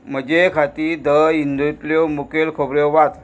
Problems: none marked